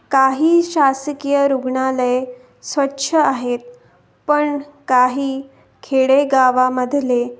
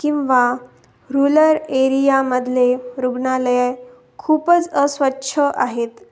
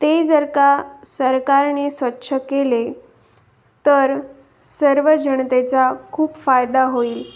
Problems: constant background noise